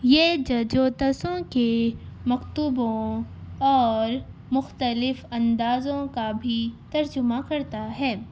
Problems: constant background noise, background conversations at intervals